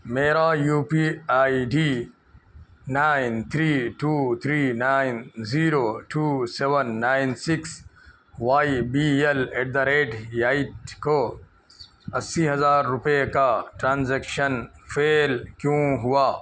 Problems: constant background noise